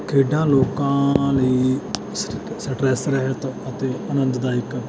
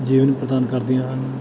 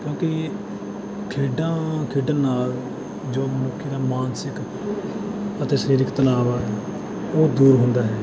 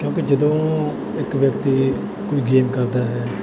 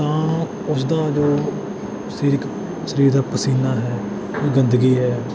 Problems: background sounds at intervals